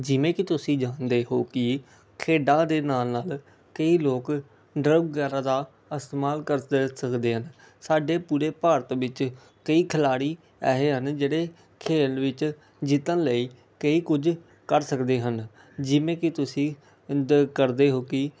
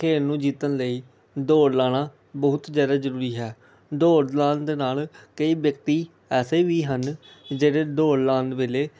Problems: none marked